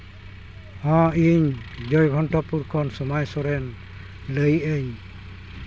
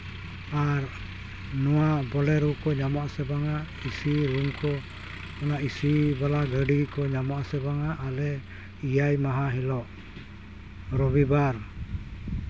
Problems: constant background noise